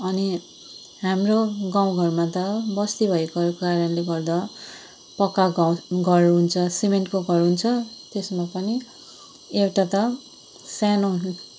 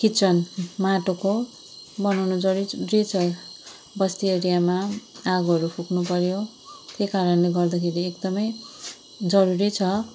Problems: constant background noise